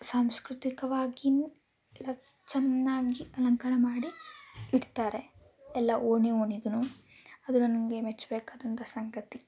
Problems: background sounds at intervals